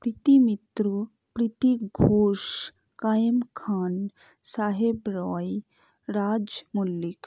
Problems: low volume